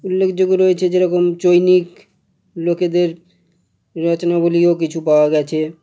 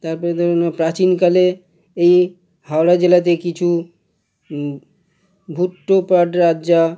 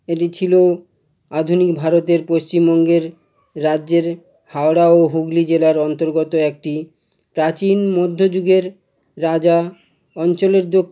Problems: none marked